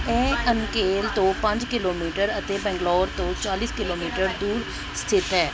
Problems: background sounds at intervals, background conversations at intervals